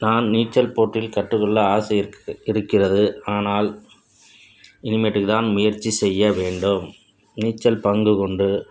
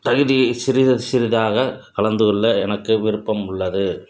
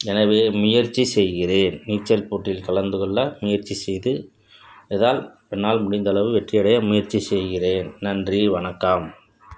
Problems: constant background noise